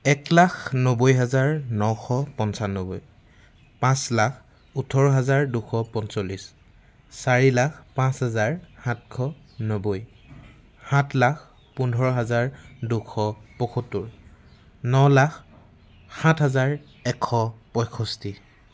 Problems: none marked